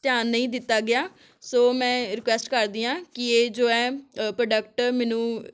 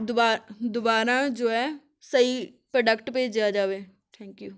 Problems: none marked